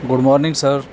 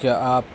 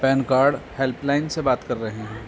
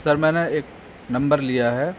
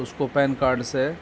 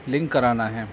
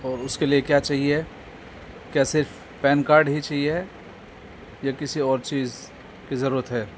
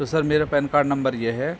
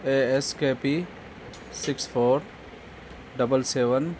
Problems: constant background noise